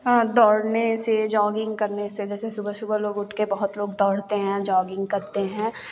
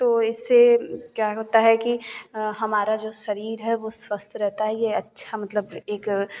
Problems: none marked